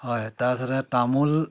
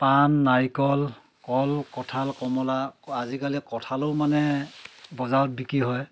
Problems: constant background noise, background conversations at intervals